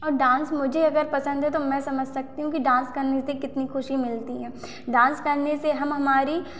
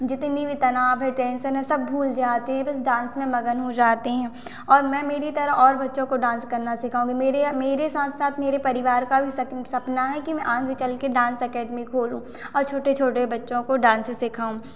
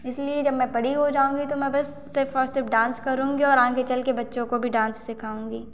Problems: constant background noise, echo